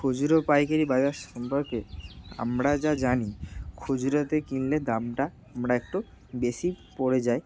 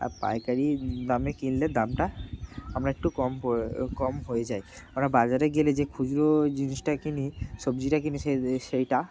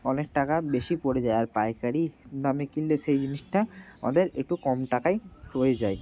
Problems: constant background noise